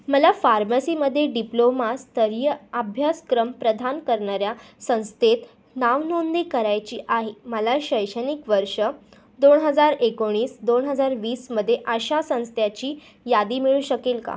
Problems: background sounds at intervals